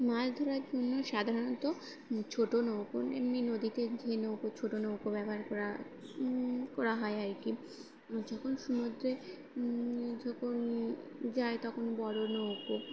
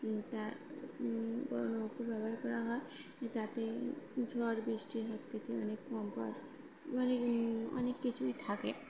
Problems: constant background noise